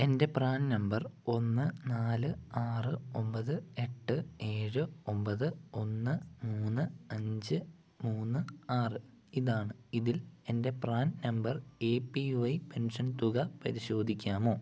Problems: low volume